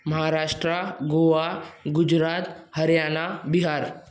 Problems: constant background noise, echo